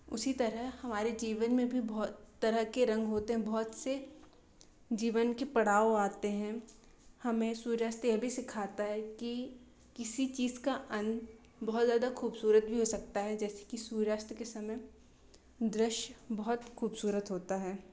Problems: constant background noise